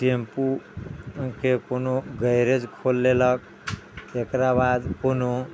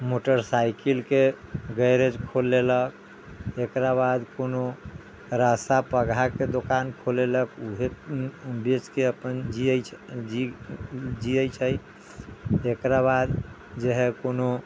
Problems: background sounds at intervals